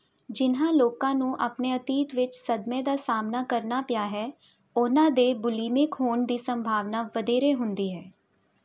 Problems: none marked